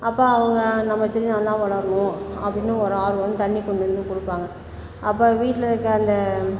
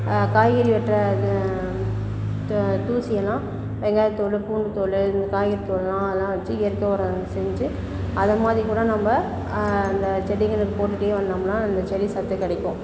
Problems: constant background noise, background conversations at intervals